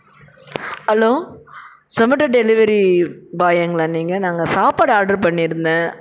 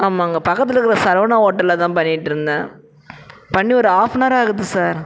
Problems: constant background noise, background conversations at intervals